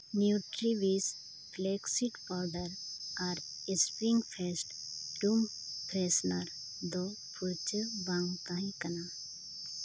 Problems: constant background noise, low volume